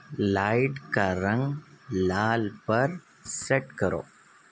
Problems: none marked